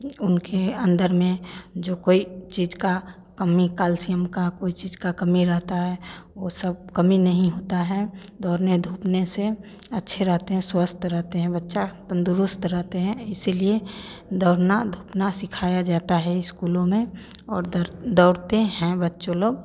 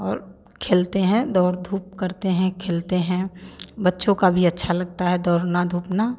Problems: none marked